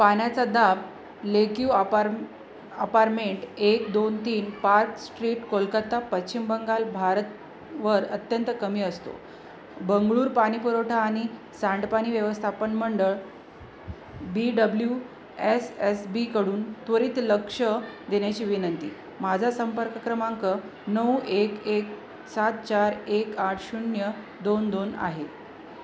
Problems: constant background noise, background conversations at intervals